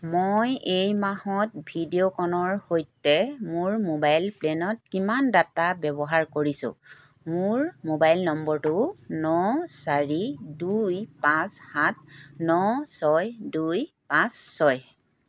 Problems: none marked